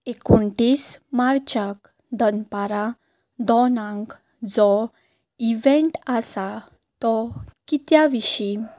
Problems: background sounds at intervals